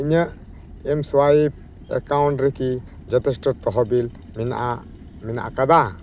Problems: constant background noise